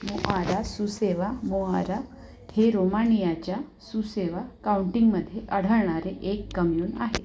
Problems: background sounds at intervals